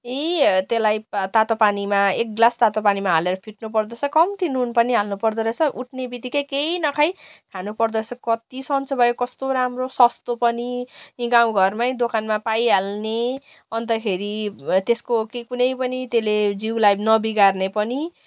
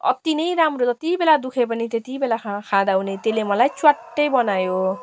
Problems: constant background noise